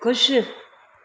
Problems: constant background noise, echo